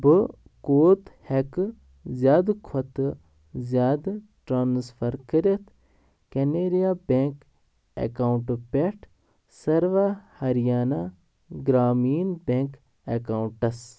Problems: background sounds at intervals